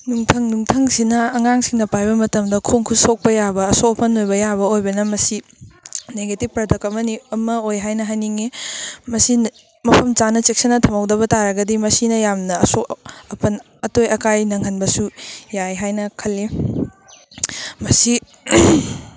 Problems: background sounds at intervals